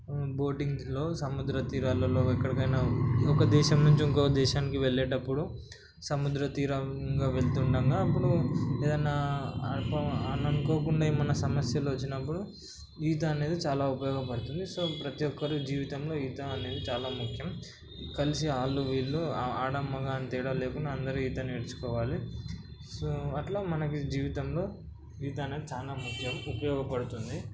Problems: none marked